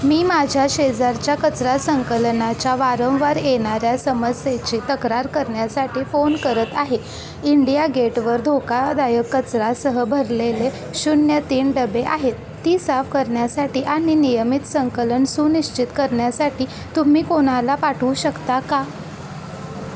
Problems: none marked